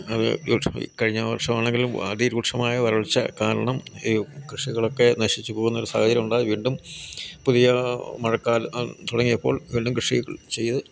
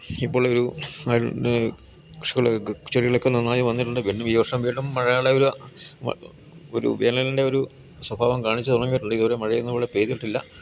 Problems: none marked